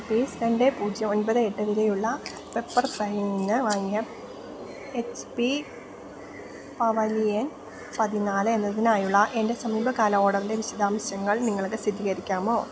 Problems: background sounds at intervals